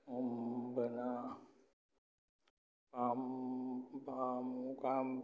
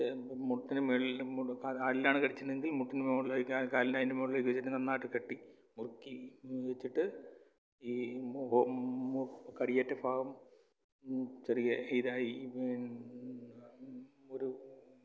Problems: low volume